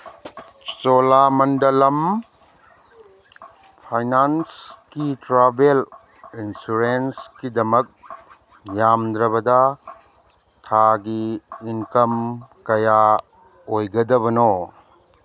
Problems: none marked